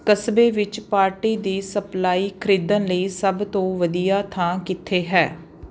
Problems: constant background noise